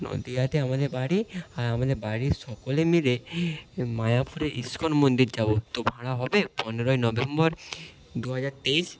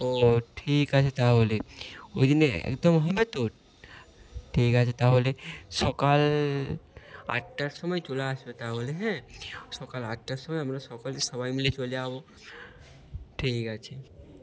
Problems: none marked